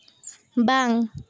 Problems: none marked